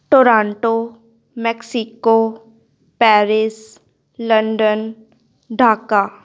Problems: none marked